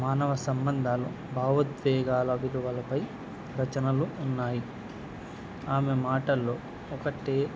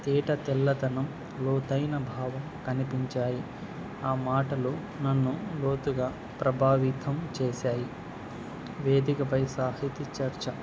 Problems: none marked